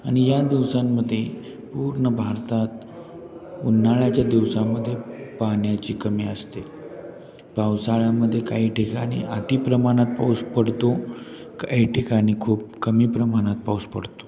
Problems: constant background noise, continuous background conversations